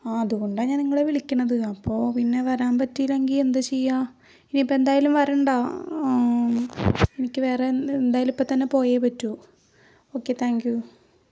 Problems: low volume